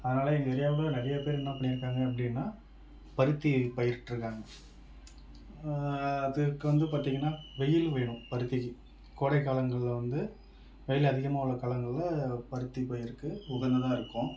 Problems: background sounds at intervals